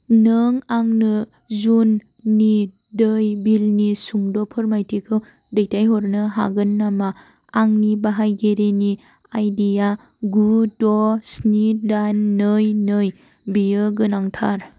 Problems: constant background noise